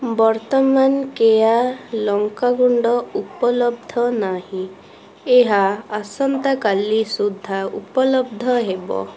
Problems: constant background noise, continuous background conversations